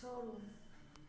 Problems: none marked